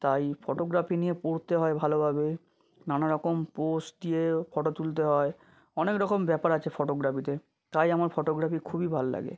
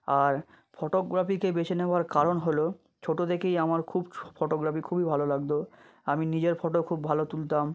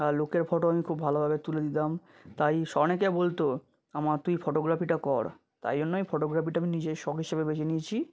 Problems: none marked